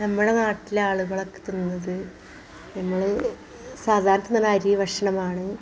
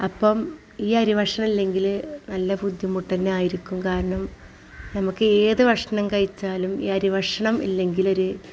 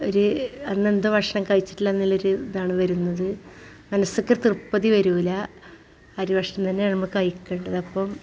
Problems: background sounds at intervals